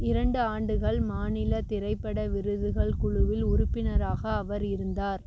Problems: constant background noise